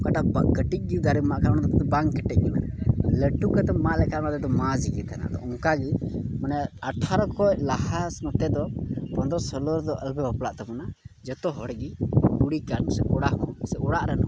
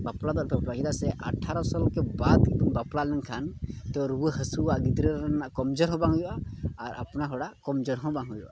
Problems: none marked